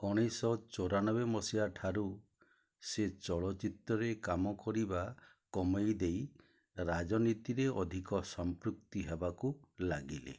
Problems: low volume